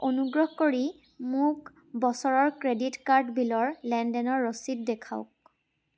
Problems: constant background noise